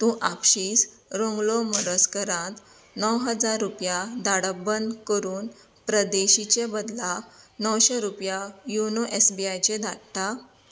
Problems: constant background noise